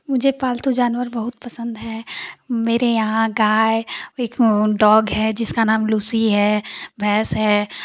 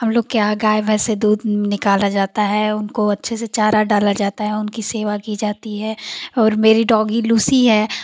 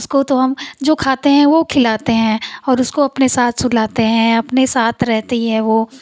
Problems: constant background noise